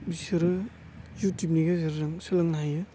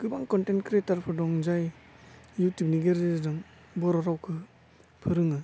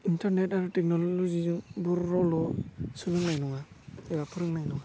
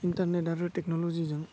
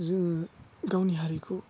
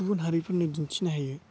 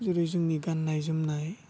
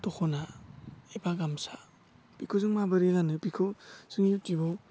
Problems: constant background noise